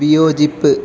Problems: constant background noise